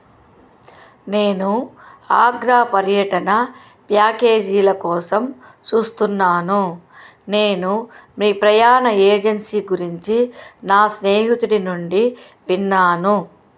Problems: constant background noise